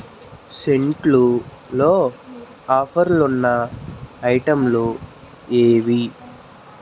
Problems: constant background noise, continuous background conversations